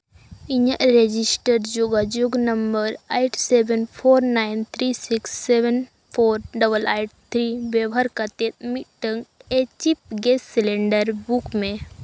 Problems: constant background noise